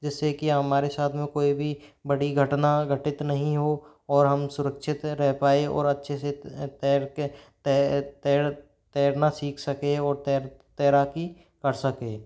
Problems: background sounds at intervals